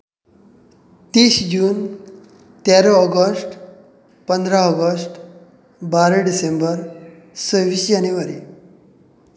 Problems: constant background noise